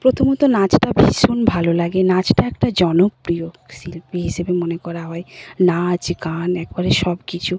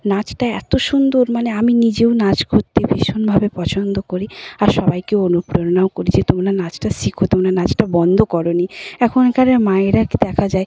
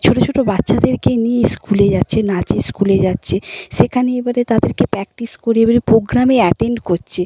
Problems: none marked